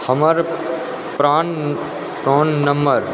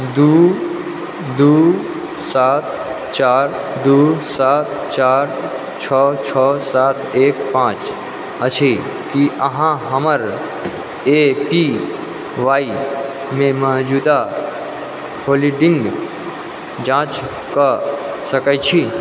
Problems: background sounds at intervals